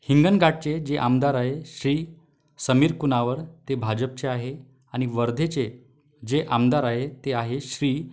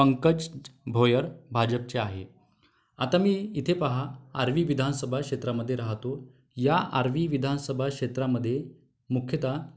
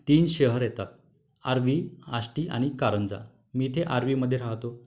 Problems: none marked